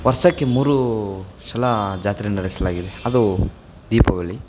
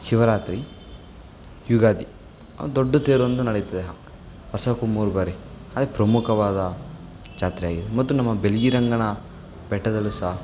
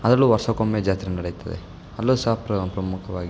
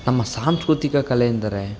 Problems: background sounds at intervals